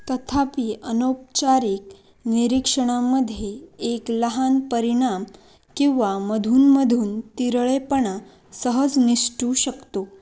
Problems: none marked